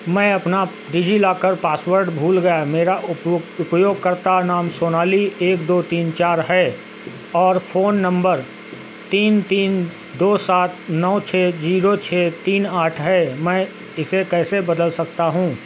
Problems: constant background noise